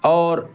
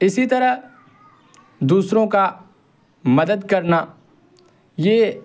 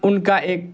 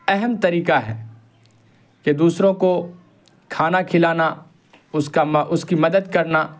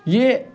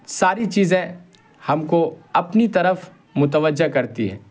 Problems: constant background noise